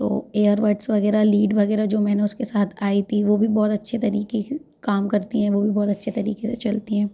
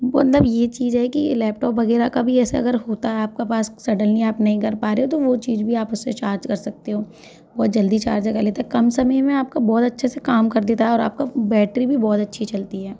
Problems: constant background noise, background conversations at intervals